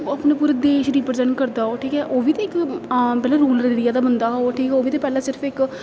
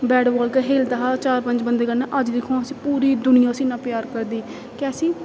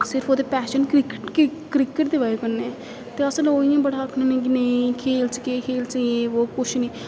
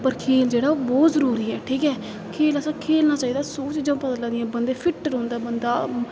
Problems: constant background noise